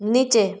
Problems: none marked